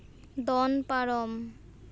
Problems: none marked